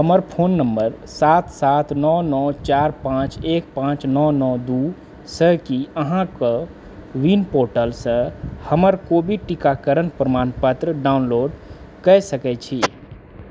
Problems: background sounds at intervals